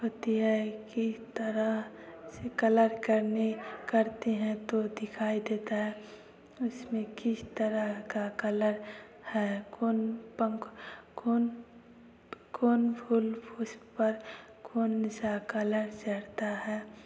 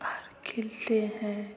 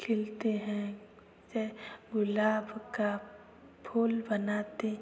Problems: constant background noise, continuous background conversations